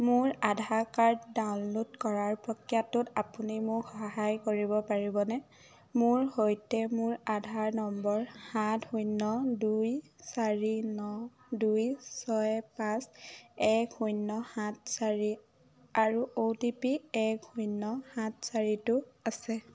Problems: low volume